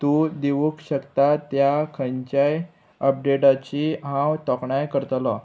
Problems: constant background noise